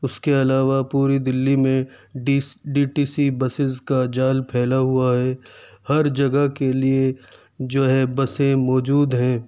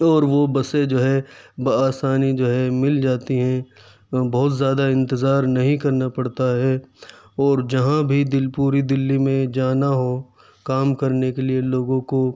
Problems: none marked